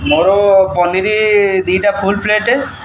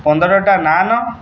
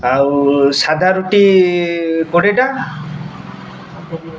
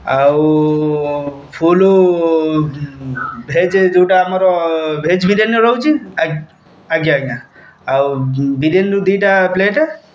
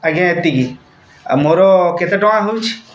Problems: constant background noise, background conversations at intervals